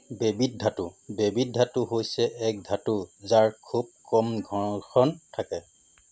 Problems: none marked